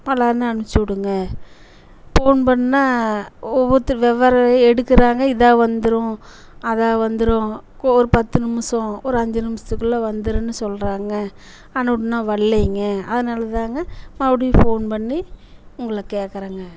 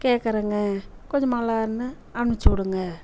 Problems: constant background noise